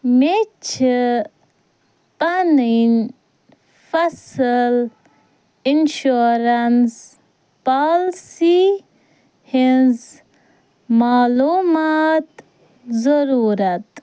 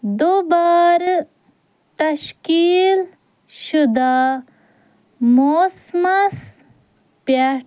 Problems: none marked